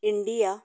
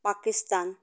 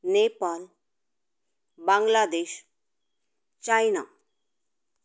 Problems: none marked